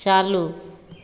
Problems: constant background noise, echo